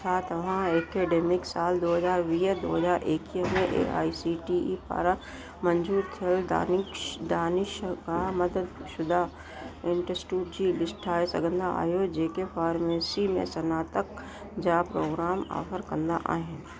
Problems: constant background noise, echo